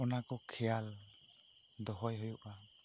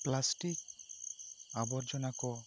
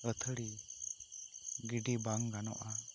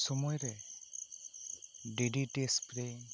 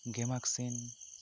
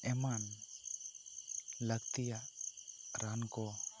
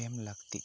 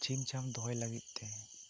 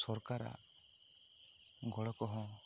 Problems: low volume